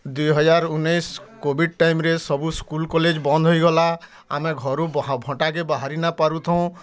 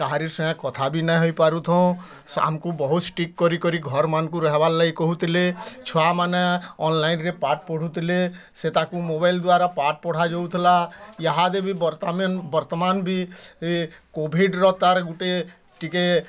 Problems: constant background noise, continuous background conversations